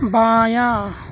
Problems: none marked